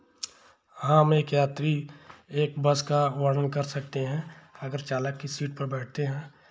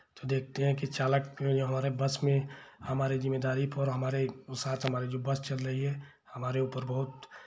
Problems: background sounds at intervals